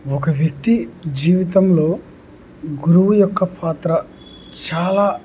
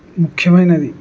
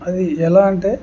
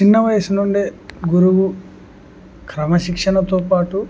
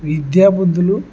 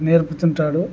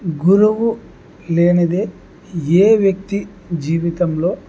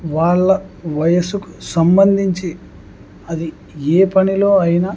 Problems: none marked